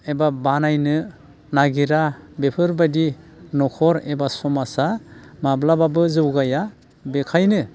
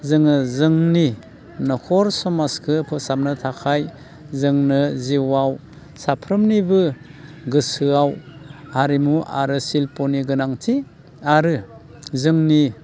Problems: constant background noise